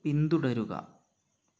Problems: none marked